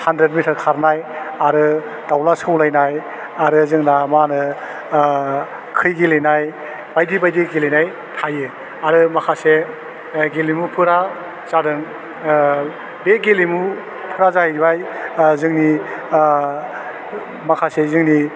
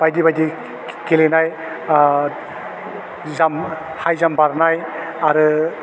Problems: none marked